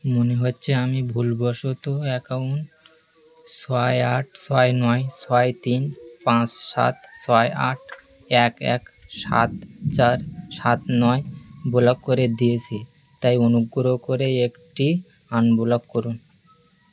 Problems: constant background noise